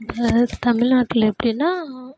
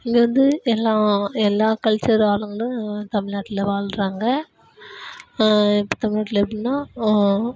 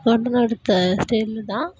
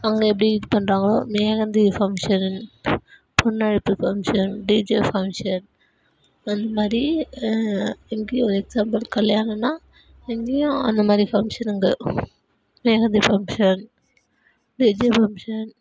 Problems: none marked